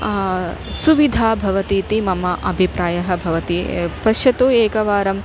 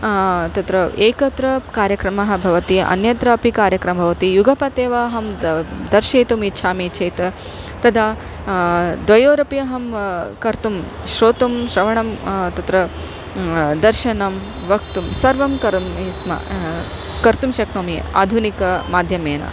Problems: none marked